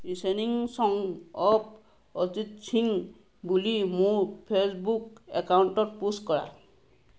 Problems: none marked